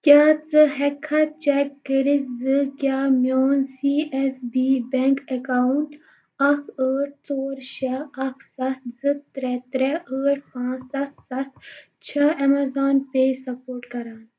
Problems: constant background noise